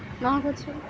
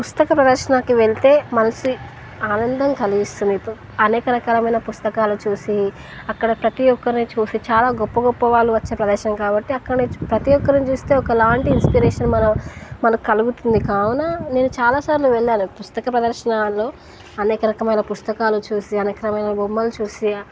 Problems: background sounds at intervals, background conversations at intervals